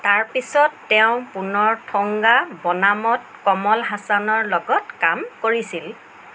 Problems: constant background noise